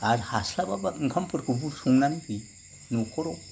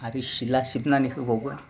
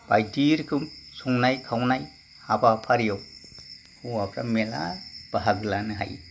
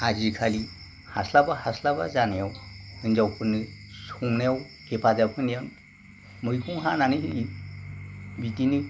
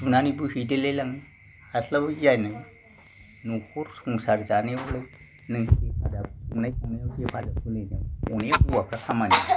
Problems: background sounds at intervals